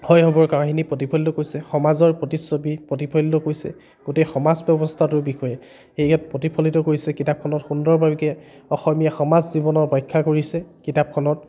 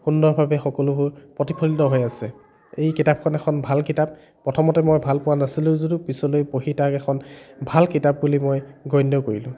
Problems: none marked